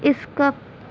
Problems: constant background noise